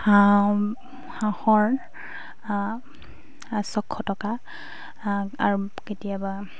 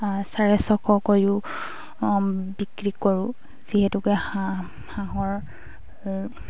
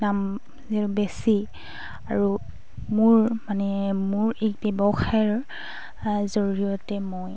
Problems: constant background noise